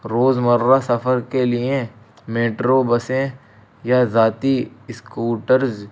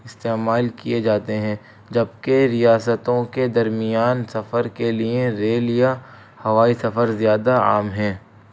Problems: constant background noise